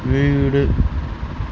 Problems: constant background noise